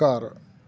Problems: none marked